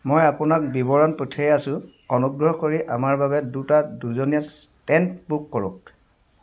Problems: background sounds at intervals